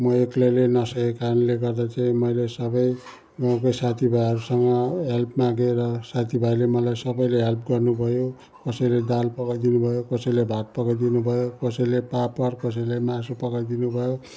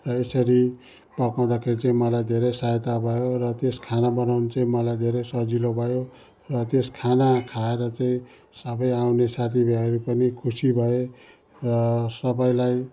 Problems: continuous background conversations